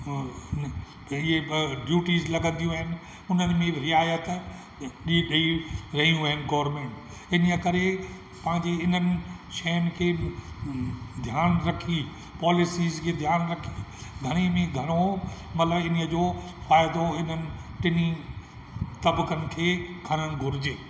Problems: constant background noise, echo